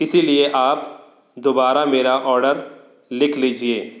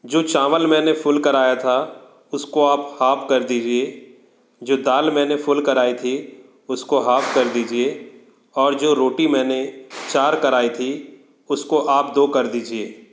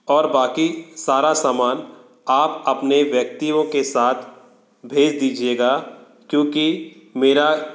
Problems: background conversations at intervals